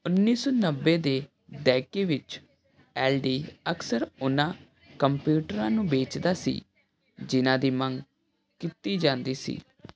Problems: none marked